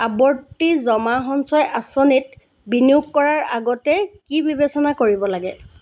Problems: constant background noise